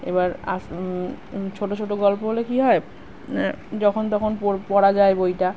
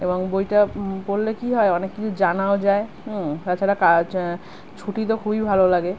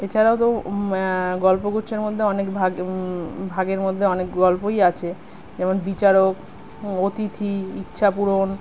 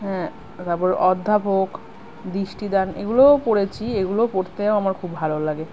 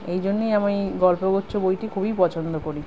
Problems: none marked